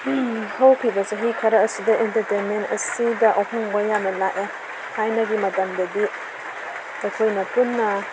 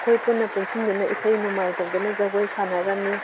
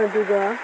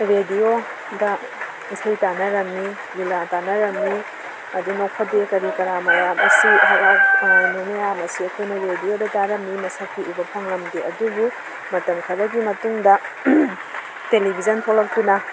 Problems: background sounds at intervals